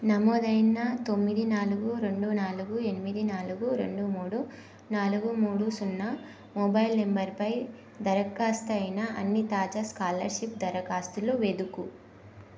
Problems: constant background noise